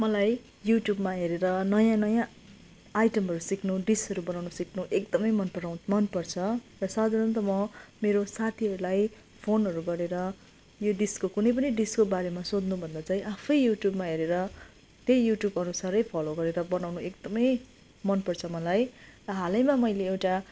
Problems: continuous background conversations